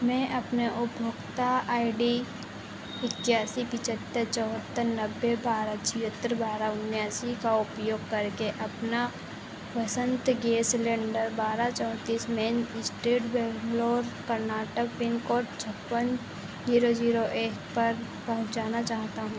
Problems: constant background noise